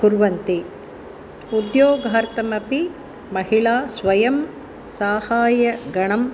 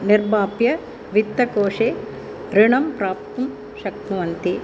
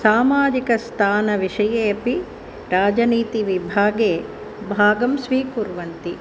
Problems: constant background noise